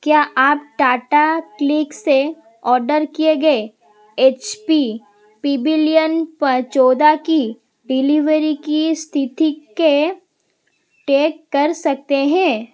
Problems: constant background noise